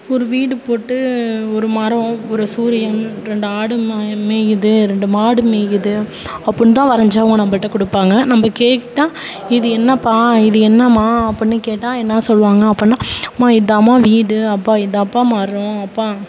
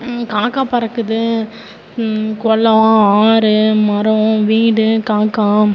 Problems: background conversations at intervals